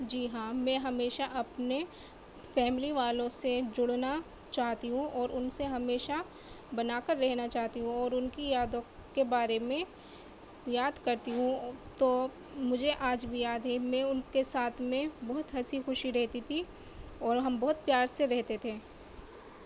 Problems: background sounds at intervals, low volume